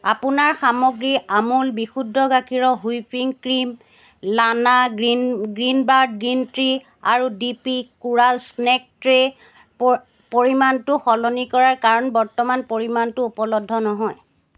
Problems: background sounds at intervals